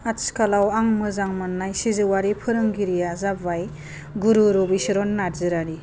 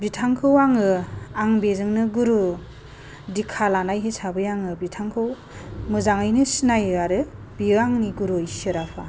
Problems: low volume